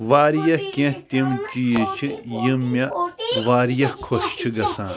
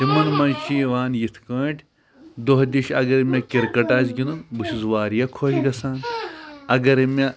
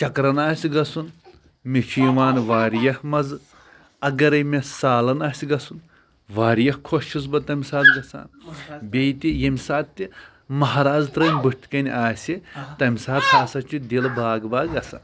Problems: constant background noise, background conversations at intervals